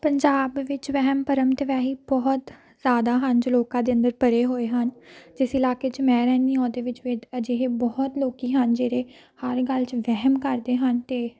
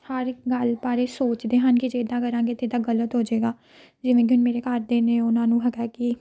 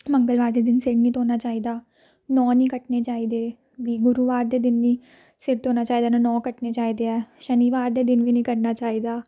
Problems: background sounds at intervals